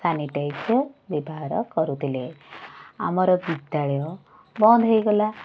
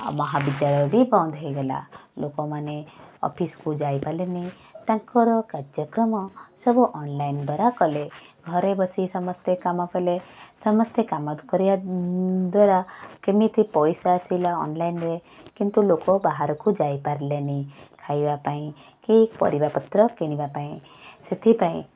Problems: constant background noise